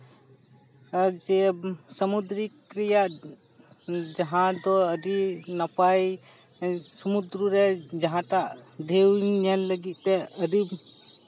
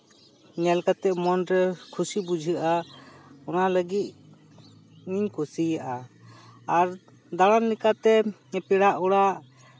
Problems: constant background noise, background conversations at intervals